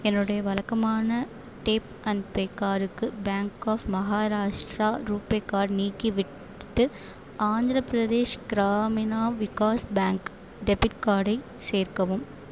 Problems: constant background noise